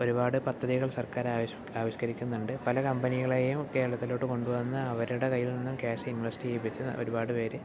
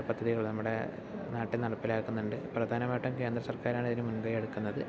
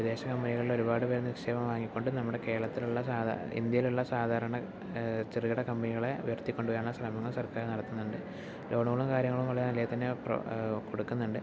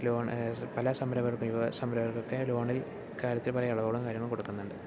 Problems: low volume